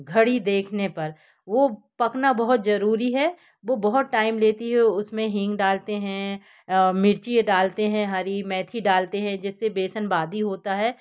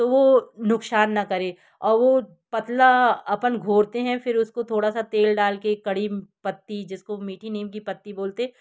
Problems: background sounds at intervals